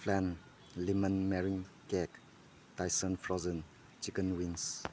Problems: background sounds at intervals